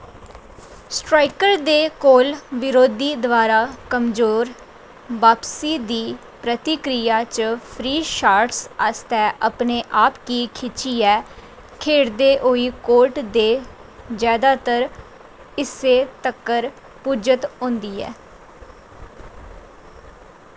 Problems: constant background noise